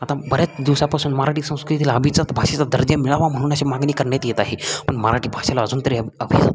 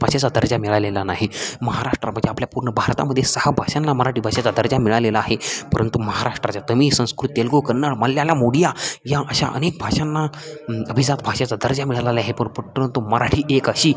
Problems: constant background noise, continuous background conversations